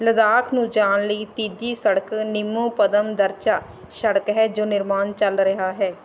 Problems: background conversations at intervals